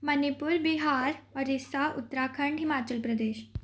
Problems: none marked